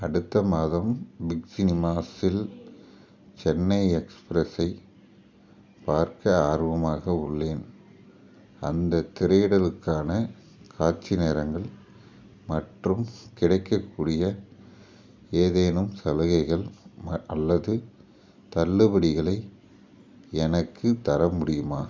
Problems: background sounds at intervals